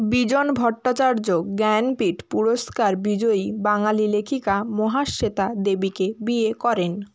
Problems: background sounds at intervals